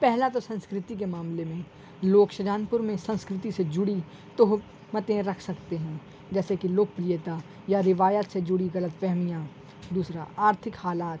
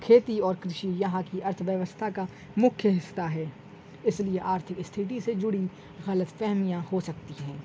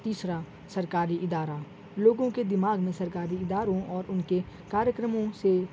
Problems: constant background noise